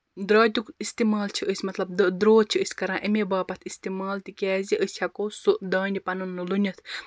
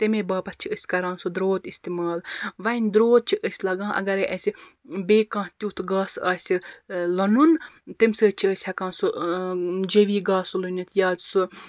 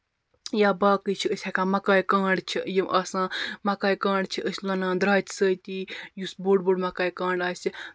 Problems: constant background noise